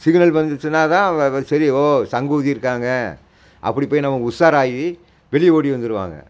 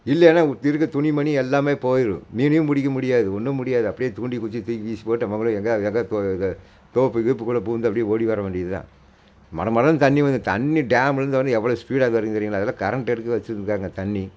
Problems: constant background noise